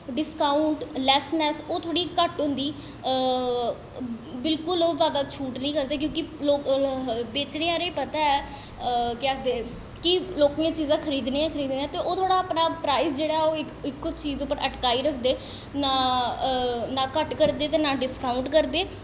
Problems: echo